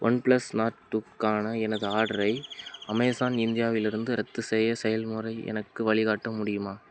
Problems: background sounds at intervals